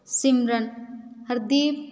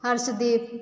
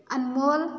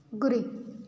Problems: continuous background conversations